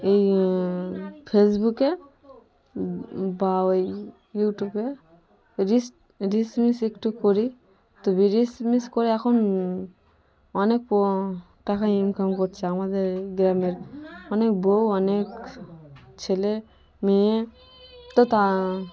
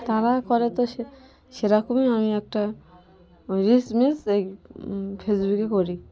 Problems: none marked